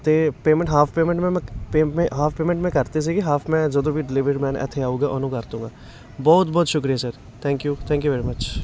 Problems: constant background noise, continuous background conversations